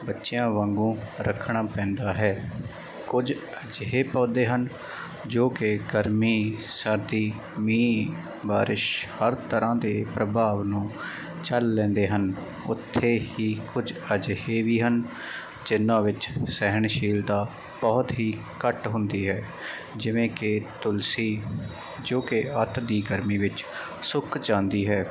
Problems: none marked